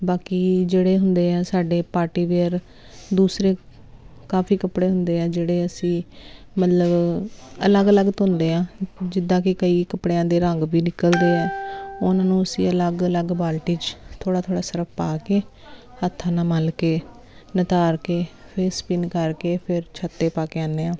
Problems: constant background noise